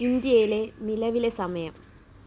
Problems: constant background noise